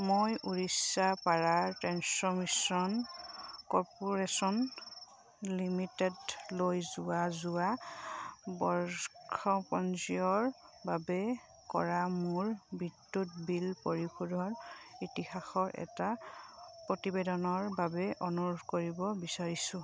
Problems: none marked